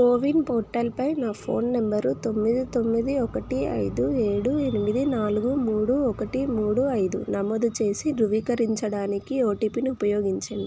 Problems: none marked